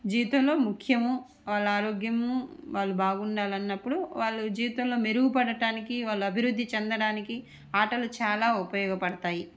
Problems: none marked